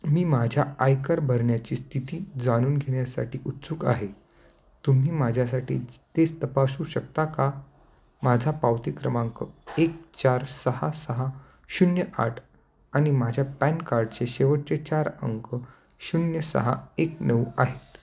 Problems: constant background noise, continuous background conversations